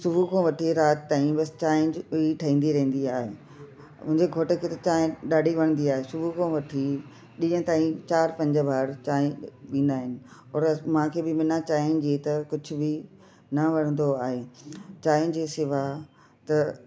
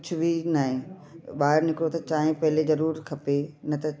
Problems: constant background noise